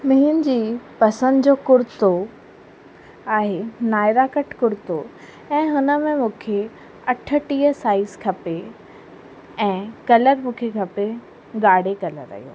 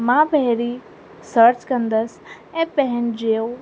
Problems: constant background noise, echo